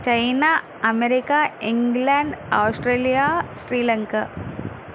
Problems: constant background noise